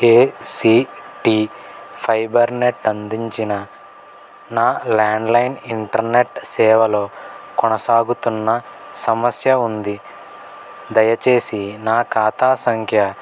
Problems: none marked